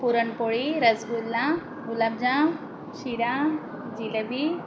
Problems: none marked